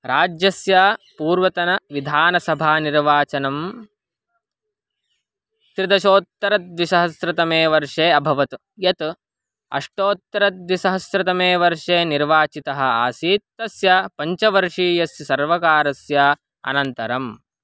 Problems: background sounds at intervals